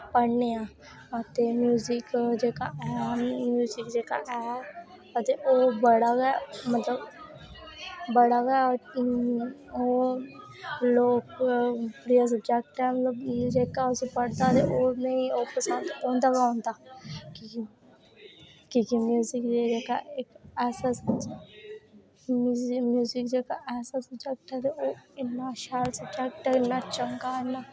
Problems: none marked